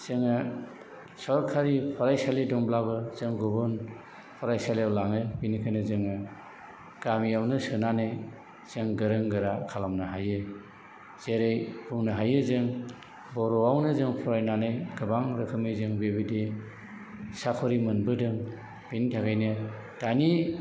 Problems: background sounds at intervals